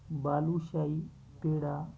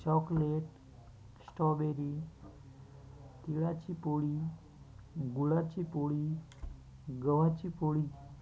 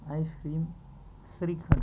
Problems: constant background noise, continuous background conversations